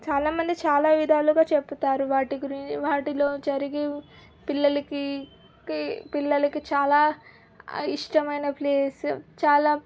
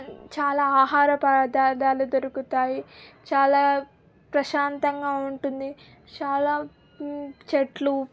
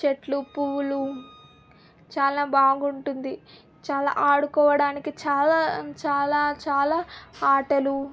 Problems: none marked